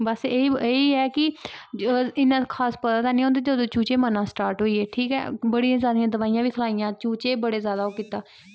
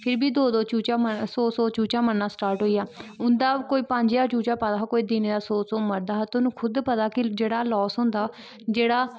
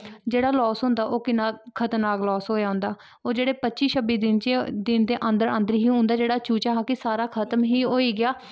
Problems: background sounds at intervals